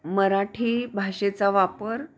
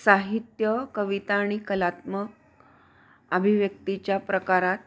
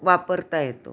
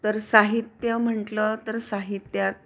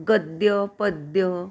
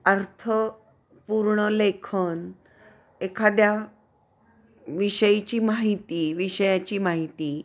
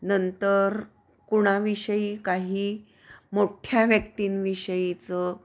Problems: none marked